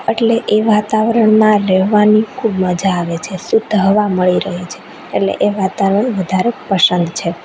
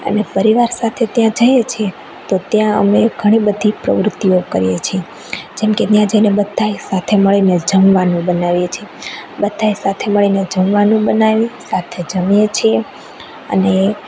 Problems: constant background noise